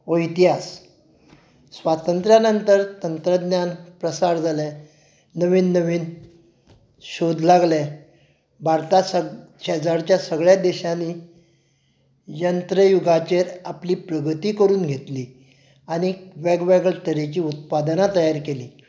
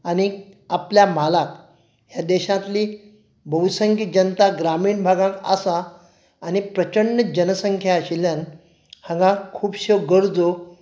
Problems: none marked